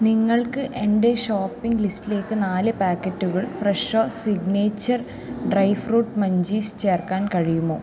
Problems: low volume